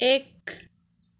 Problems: none marked